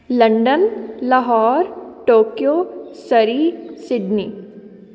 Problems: continuous background conversations